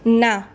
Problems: constant background noise